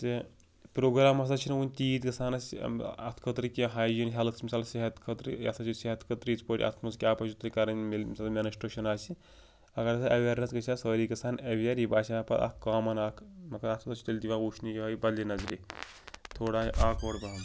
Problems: none marked